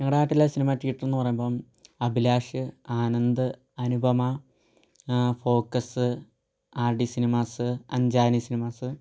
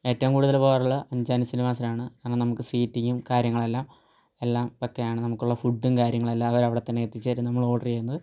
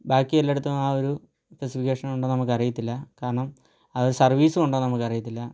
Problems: low volume